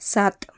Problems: none marked